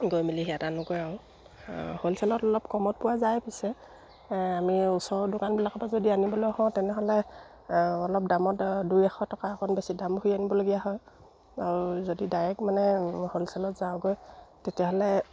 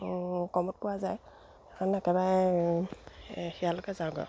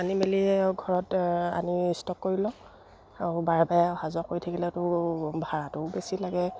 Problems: none marked